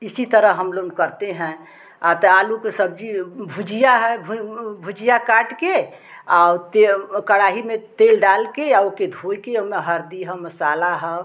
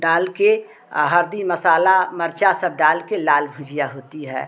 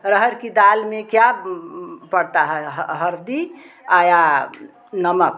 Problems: constant background noise, background conversations at intervals